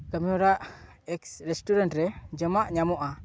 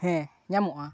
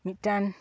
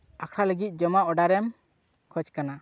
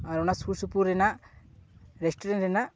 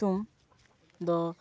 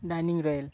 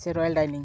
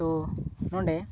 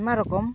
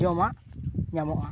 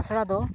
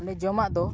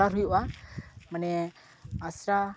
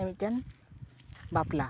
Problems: background sounds at intervals, background conversations at intervals